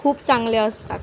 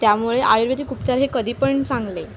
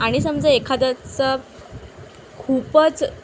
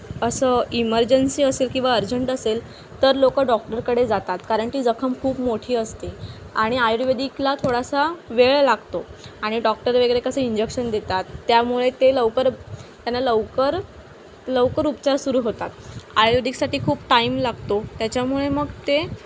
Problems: constant background noise